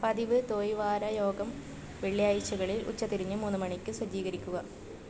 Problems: constant background noise, low volume